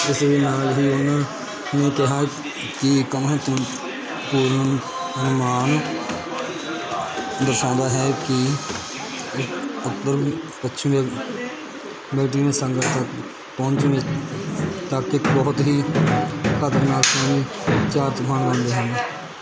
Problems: constant background noise, continuous background conversations